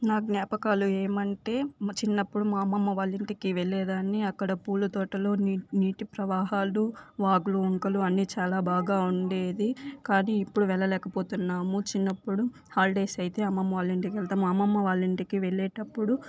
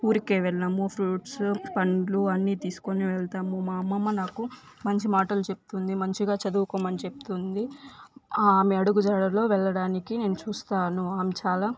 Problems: background sounds at intervals